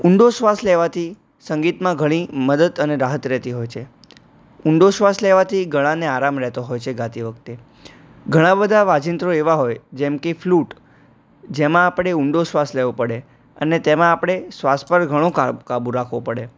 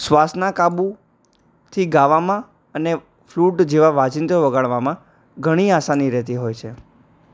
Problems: none marked